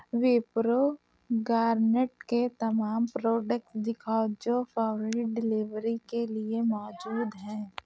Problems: background sounds at intervals